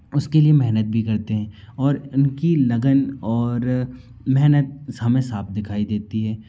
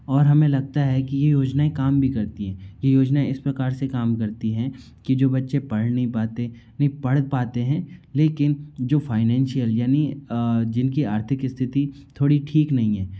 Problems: none marked